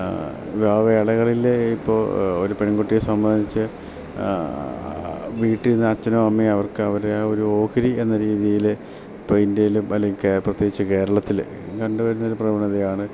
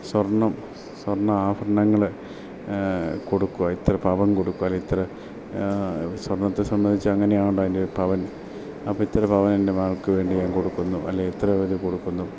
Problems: none marked